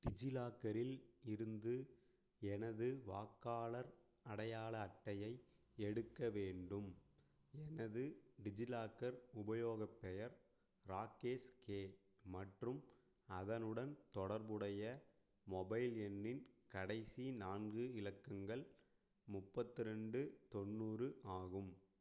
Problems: low volume